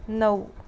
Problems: background sounds at intervals